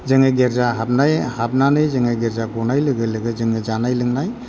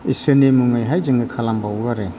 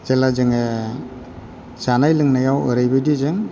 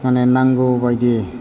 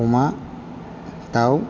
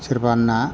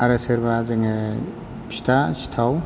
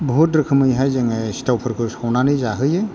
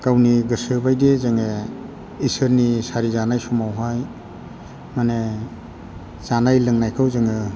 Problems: none marked